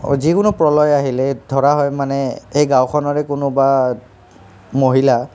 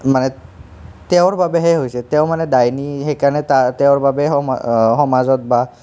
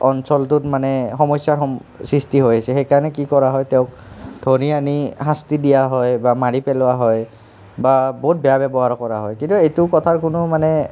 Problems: background conversations at intervals